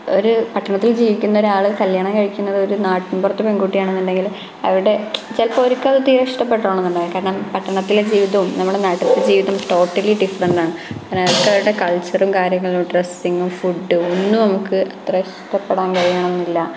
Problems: constant background noise